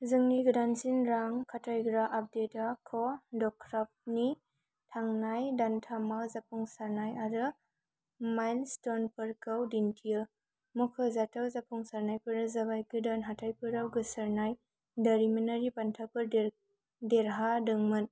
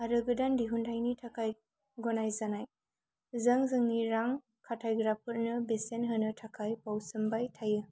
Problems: none marked